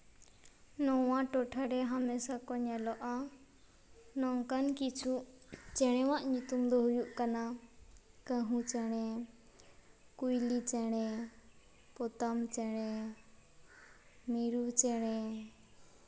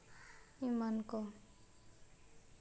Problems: background sounds at intervals